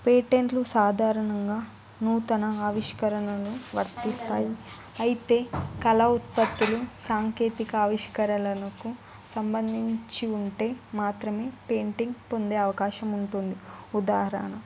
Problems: none marked